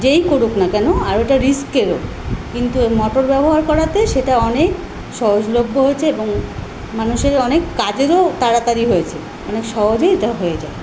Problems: constant background noise